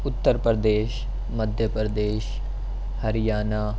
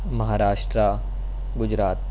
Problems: none marked